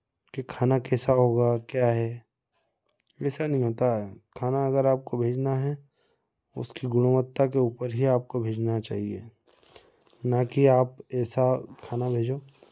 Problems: none marked